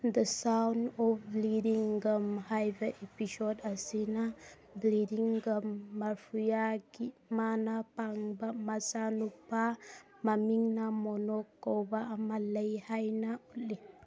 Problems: background conversations at intervals